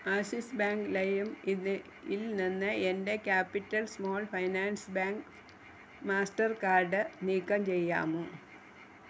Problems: constant background noise